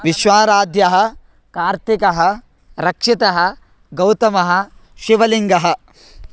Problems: constant background noise, background conversations at intervals